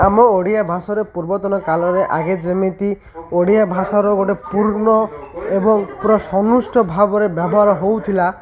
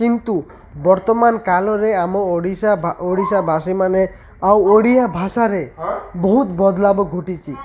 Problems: none marked